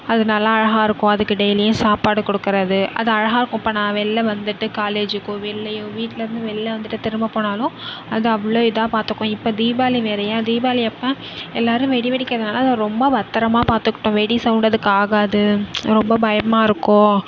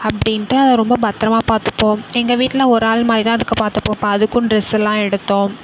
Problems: background sounds at intervals